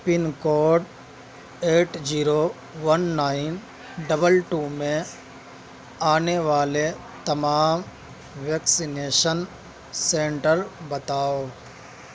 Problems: constant background noise